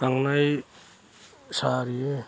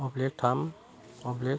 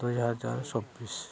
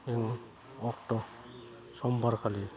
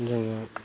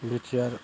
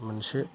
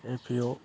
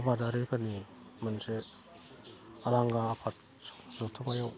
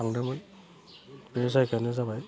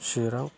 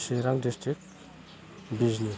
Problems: low volume